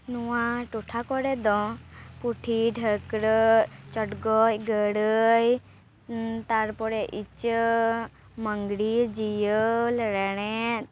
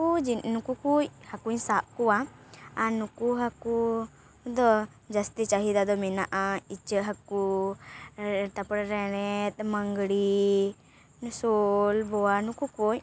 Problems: none marked